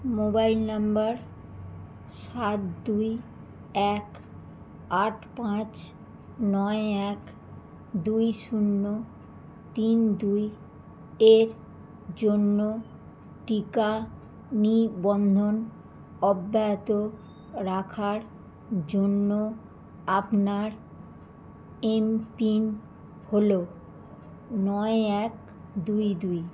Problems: constant background noise